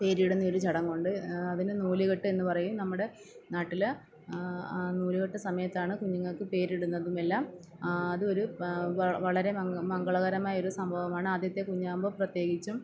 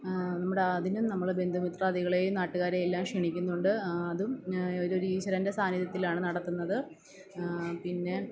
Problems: background sounds at intervals